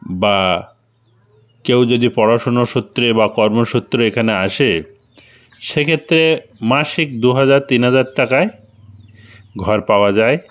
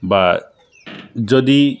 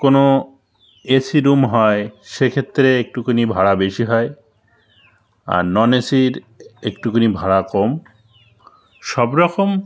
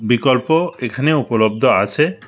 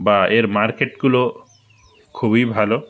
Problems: constant background noise